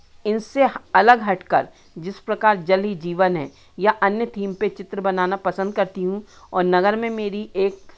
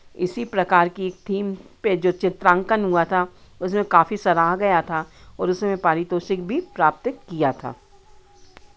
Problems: none marked